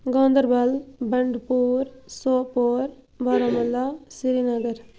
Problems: constant background noise